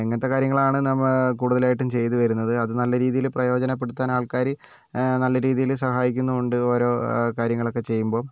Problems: none marked